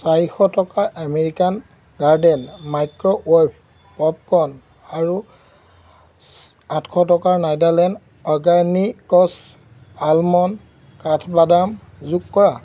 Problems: none marked